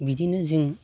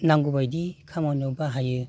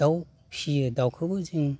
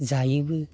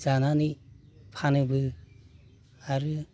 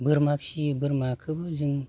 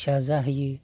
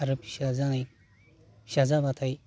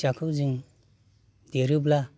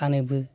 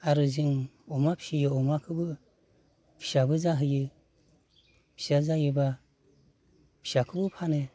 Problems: constant background noise